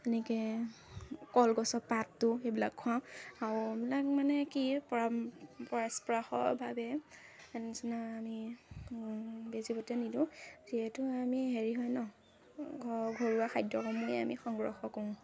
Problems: constant background noise, background conversations at intervals